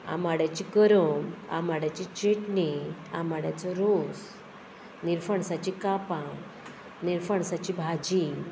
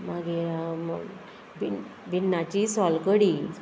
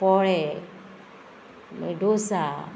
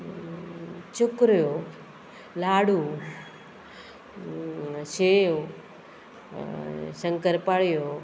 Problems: constant background noise